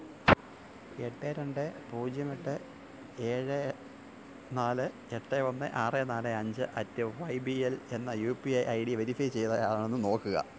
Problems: constant background noise, low volume